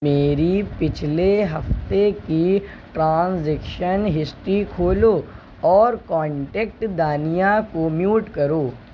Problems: none marked